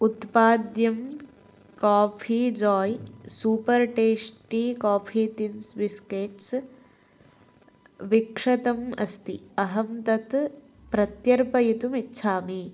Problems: none marked